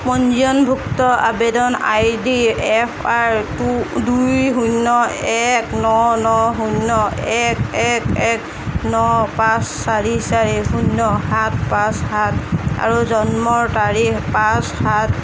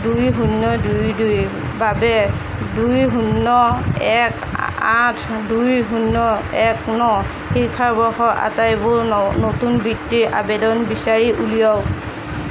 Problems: constant background noise